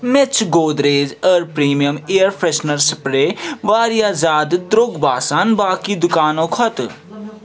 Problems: constant background noise, background conversations at intervals